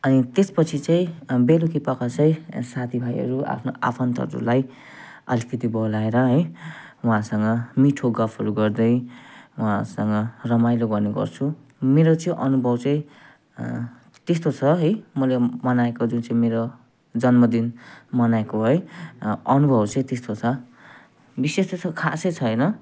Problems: none marked